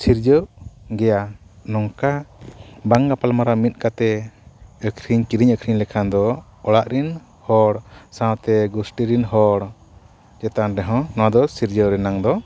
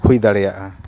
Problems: constant background noise